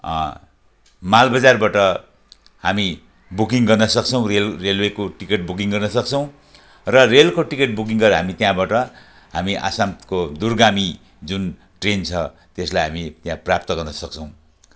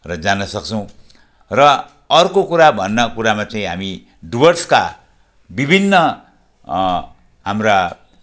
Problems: background sounds at intervals